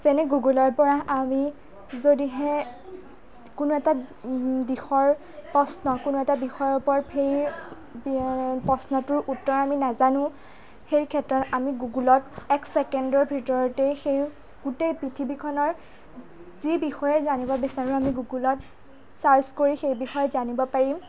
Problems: background conversations at intervals, low volume